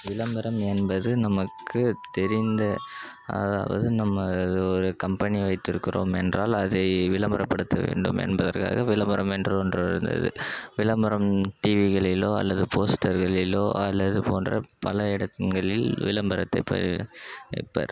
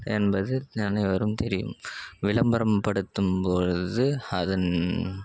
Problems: background sounds at intervals